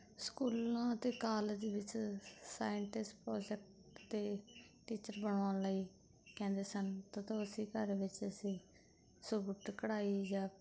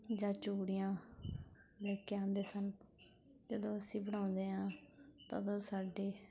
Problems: background sounds at intervals